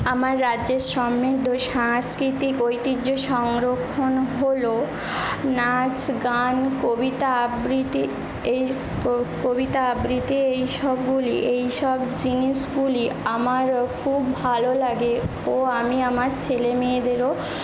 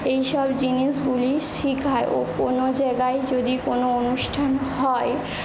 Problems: none marked